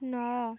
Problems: none marked